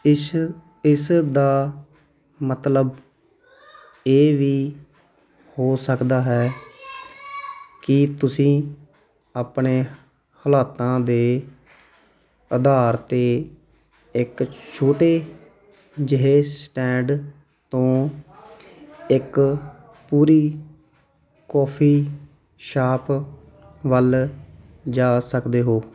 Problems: continuous background conversations